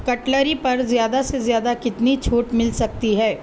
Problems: constant background noise